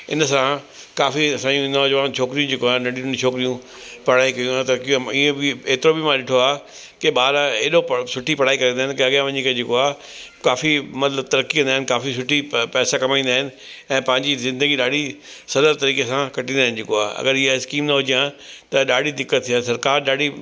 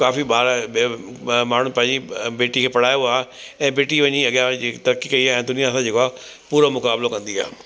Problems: constant background noise